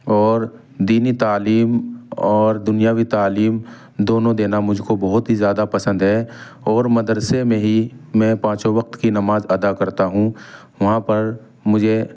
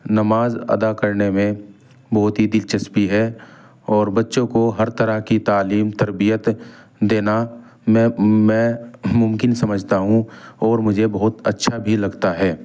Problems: background sounds at intervals